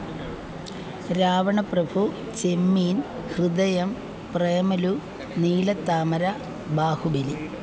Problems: background sounds at intervals